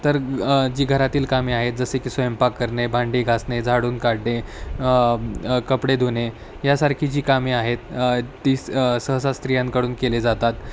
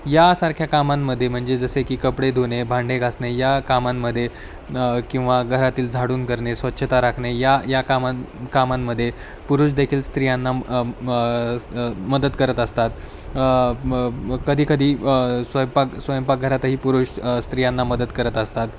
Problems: constant background noise, background conversations at intervals